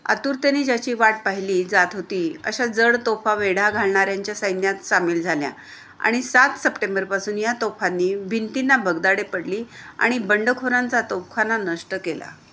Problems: none marked